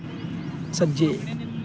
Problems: background sounds at intervals